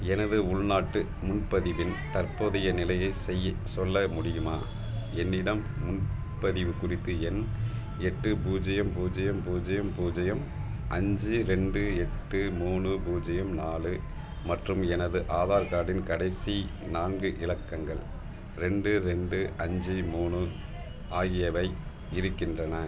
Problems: constant background noise